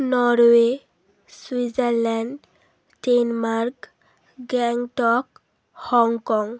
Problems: constant background noise